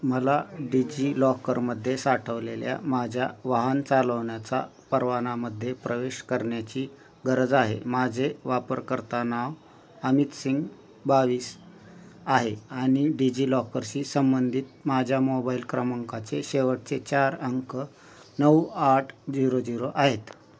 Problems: constant background noise, background conversations at intervals